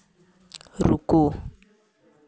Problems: none marked